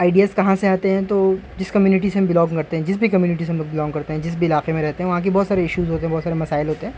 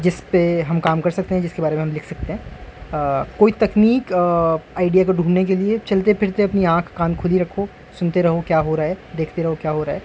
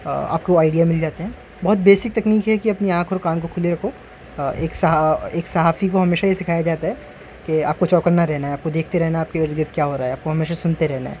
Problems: constant background noise